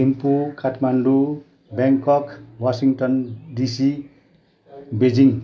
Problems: continuous background conversations